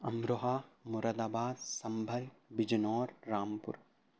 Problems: constant background noise, low volume